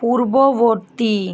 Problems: constant background noise